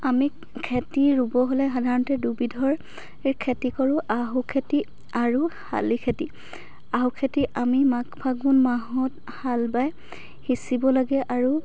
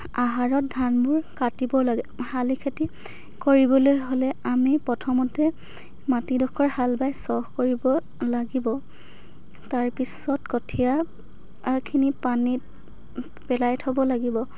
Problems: background sounds at intervals, background conversations at intervals